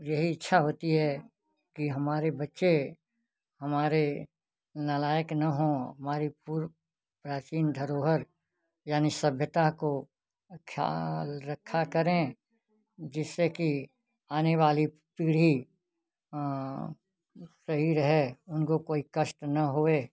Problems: none marked